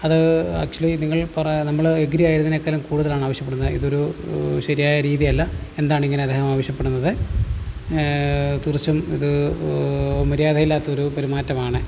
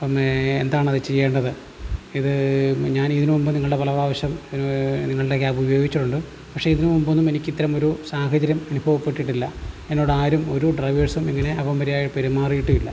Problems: constant background noise